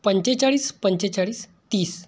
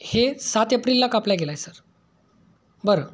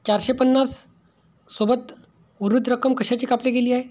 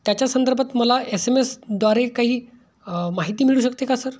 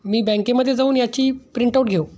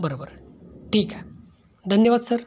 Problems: background sounds at intervals